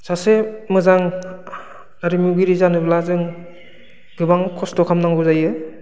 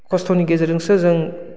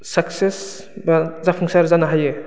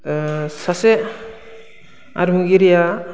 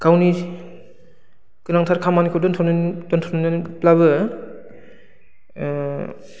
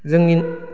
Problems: low volume